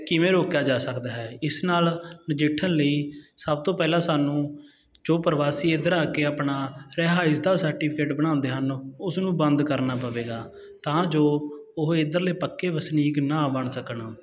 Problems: constant background noise